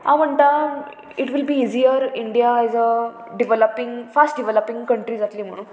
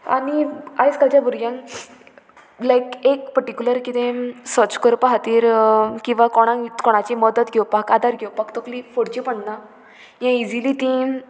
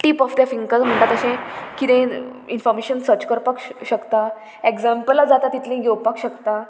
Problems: constant background noise